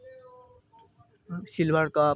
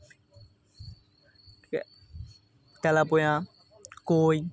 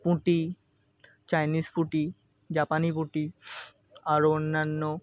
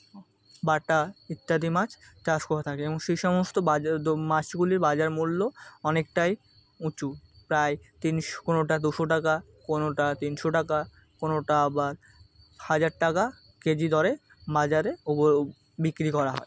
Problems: constant background noise, continuous background conversations